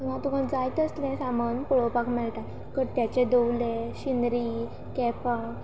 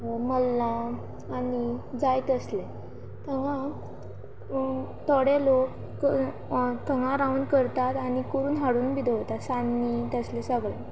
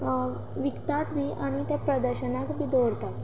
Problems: constant background noise